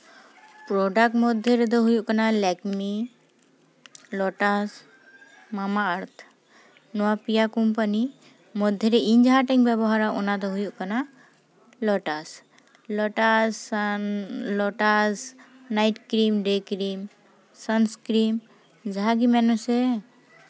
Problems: constant background noise